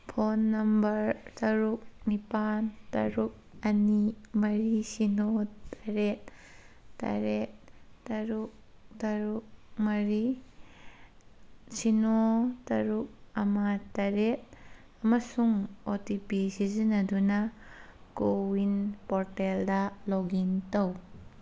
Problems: background sounds at intervals